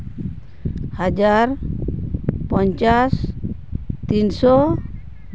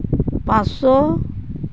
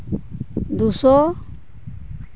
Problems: constant background noise